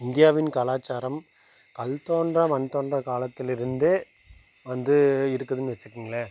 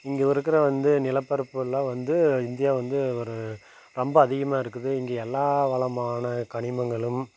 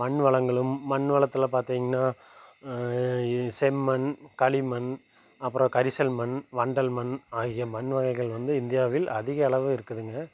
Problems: constant background noise